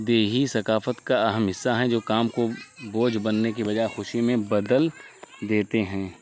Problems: constant background noise